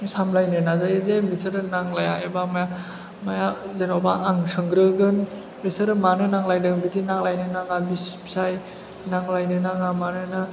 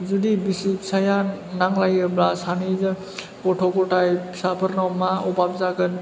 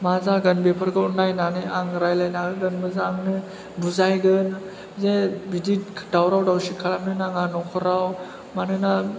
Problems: background sounds at intervals, background conversations at intervals